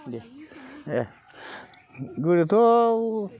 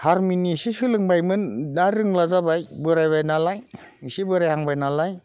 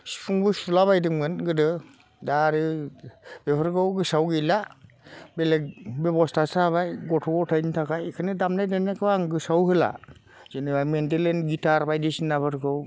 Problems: constant background noise